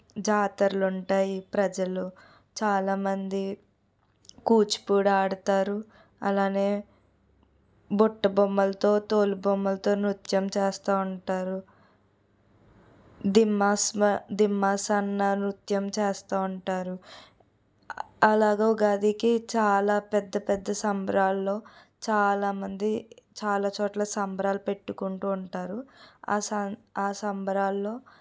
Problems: none marked